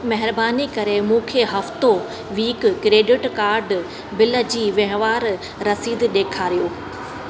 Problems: constant background noise, echo